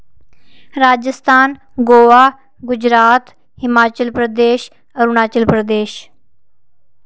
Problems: none marked